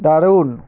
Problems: constant background noise